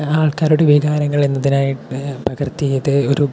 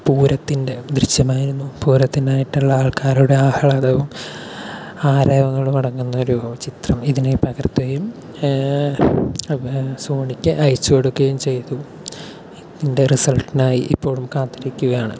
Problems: none marked